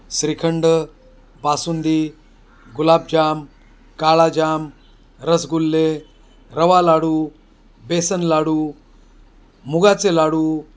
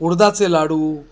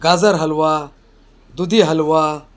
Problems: background sounds at intervals